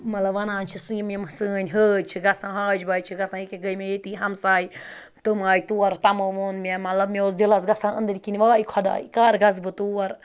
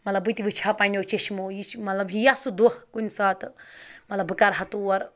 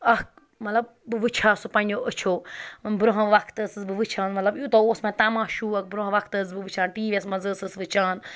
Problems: background sounds at intervals